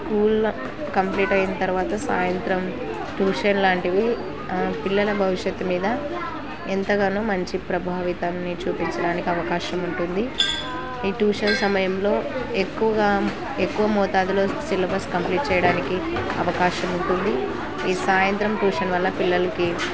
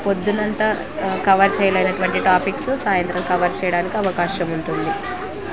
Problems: constant background noise